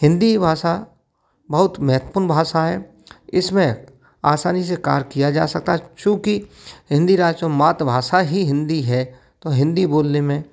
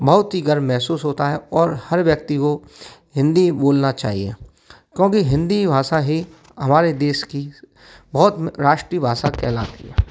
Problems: background sounds at intervals